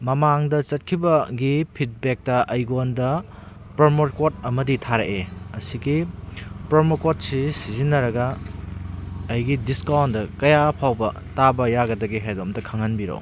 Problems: background sounds at intervals